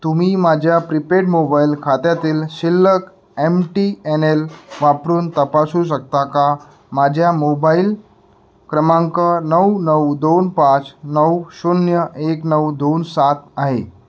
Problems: background sounds at intervals